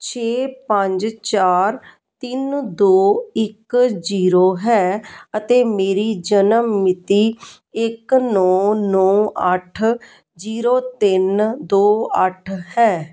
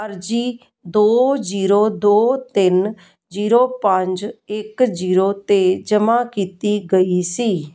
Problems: none marked